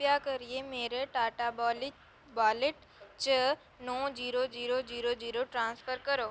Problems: none marked